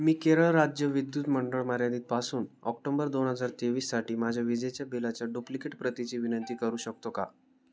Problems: none marked